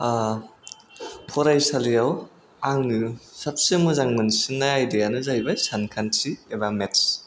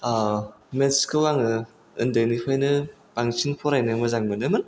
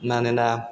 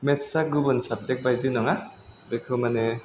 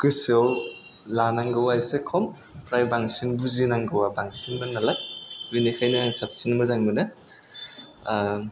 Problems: none marked